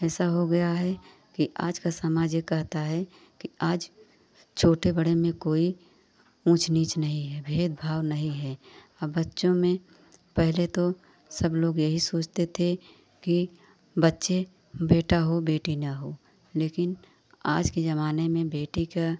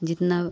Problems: none marked